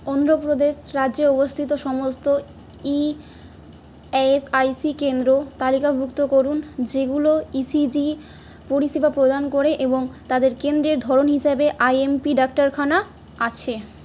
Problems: none marked